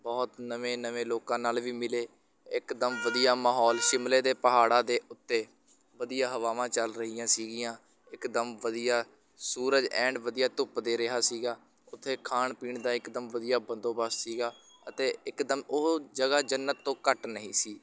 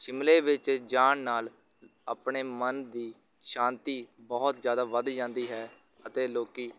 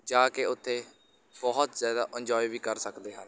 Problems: background sounds at intervals, continuous background conversations